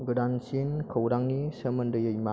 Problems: constant background noise